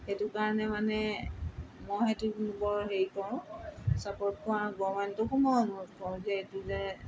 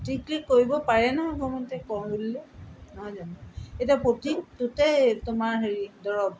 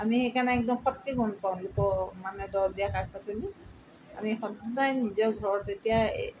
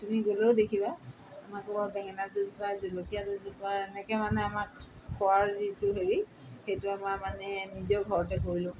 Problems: constant background noise